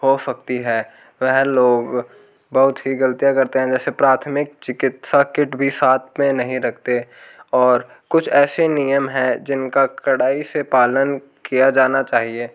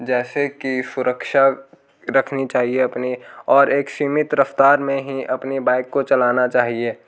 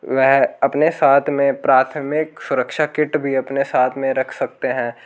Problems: background sounds at intervals